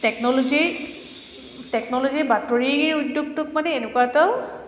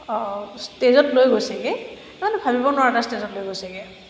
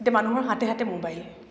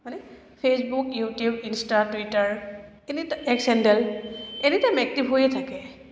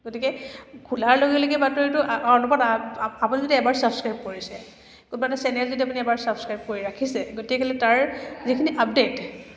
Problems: background sounds at intervals